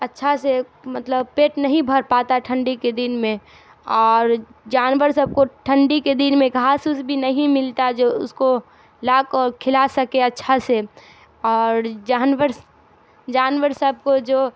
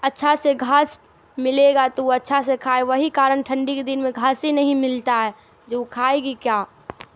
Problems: constant background noise